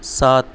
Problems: none marked